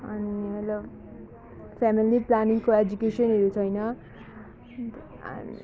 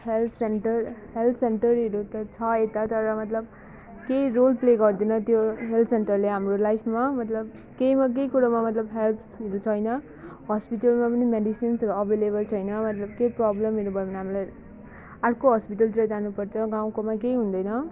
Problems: background sounds at intervals